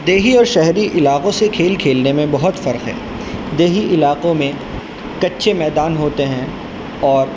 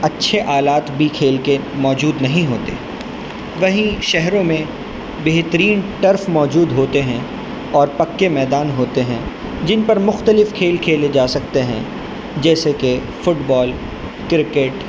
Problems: constant background noise